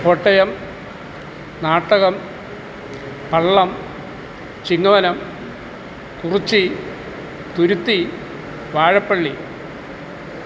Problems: constant background noise